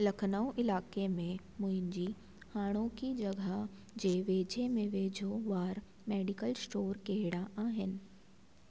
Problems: constant background noise, echo